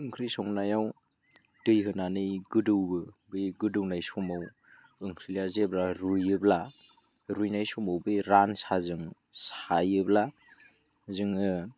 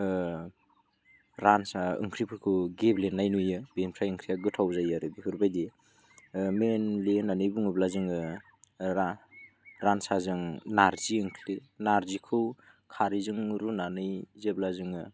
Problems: none marked